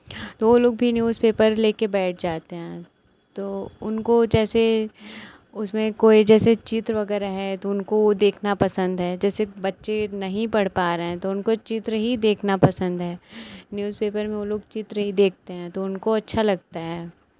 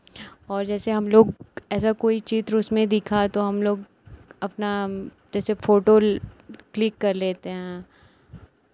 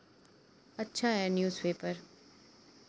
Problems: none marked